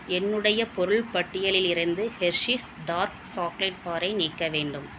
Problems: low volume